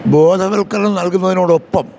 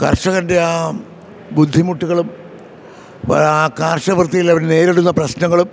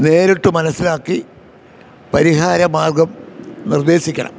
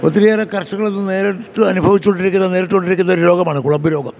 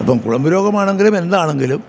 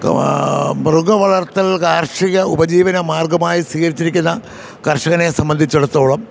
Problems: none marked